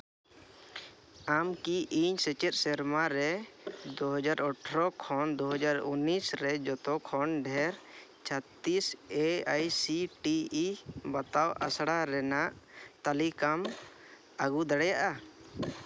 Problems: background sounds at intervals